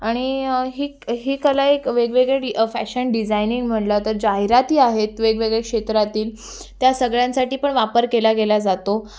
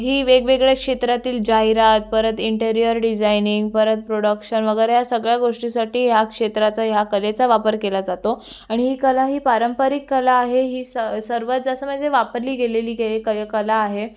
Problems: background sounds at intervals, background conversations at intervals